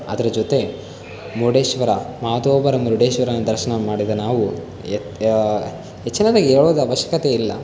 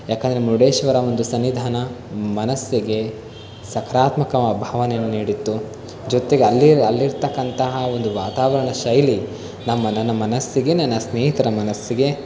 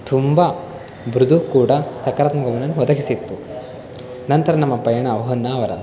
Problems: background sounds at intervals